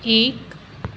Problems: constant background noise